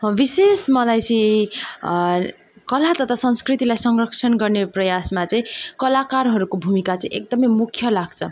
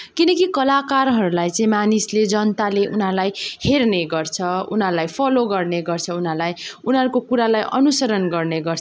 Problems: background sounds at intervals